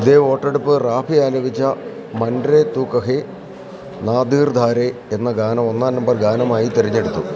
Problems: continuous background conversations